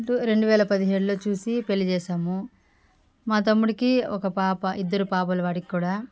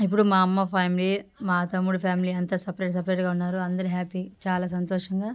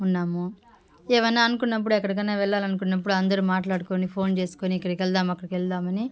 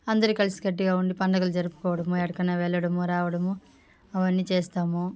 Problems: background sounds at intervals, background conversations at intervals